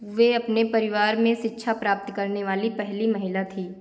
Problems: constant background noise